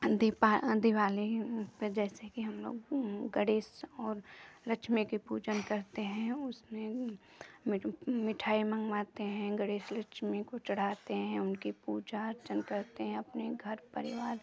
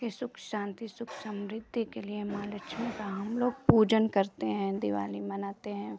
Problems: none marked